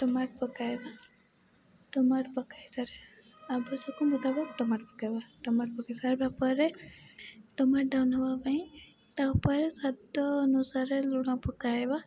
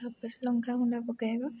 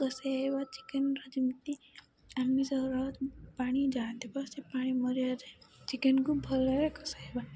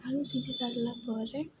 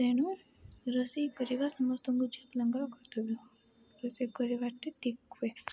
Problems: background sounds at intervals, background conversations at intervals, low volume